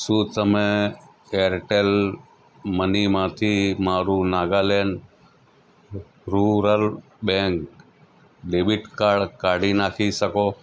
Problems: none marked